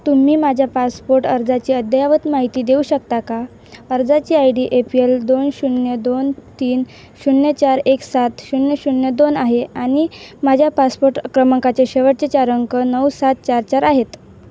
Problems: none marked